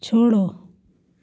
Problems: background sounds at intervals